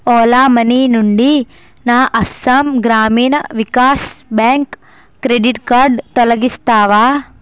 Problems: constant background noise